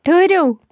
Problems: none marked